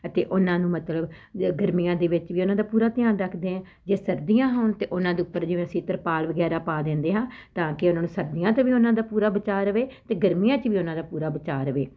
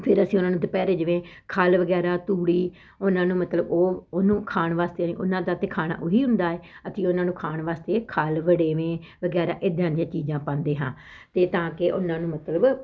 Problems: constant background noise